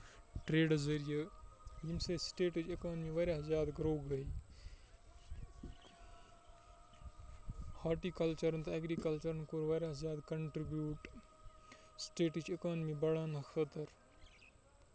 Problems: constant background noise, low volume